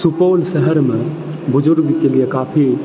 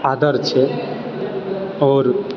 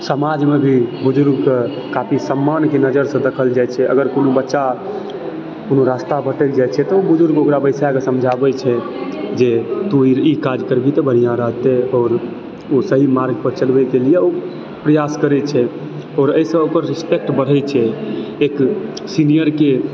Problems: background sounds at intervals, continuous background conversations